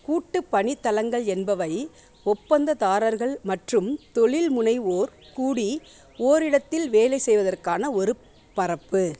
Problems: background sounds at intervals, background conversations at intervals